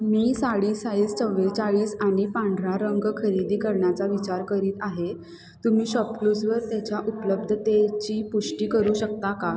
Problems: constant background noise, continuous background conversations